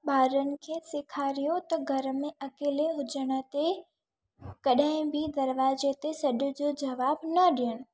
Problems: none marked